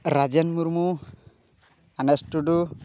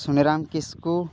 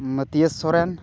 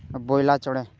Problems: background conversations at intervals